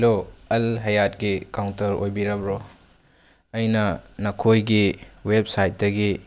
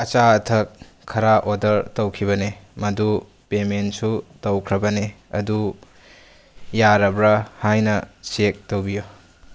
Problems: background sounds at intervals